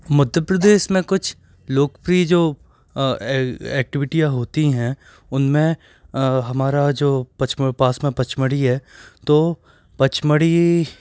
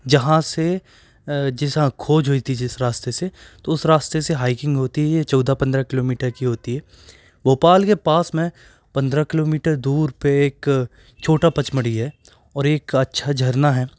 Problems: background sounds at intervals